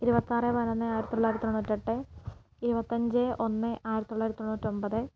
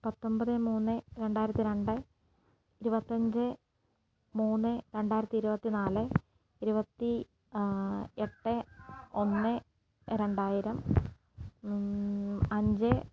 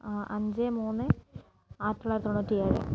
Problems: constant background noise, low volume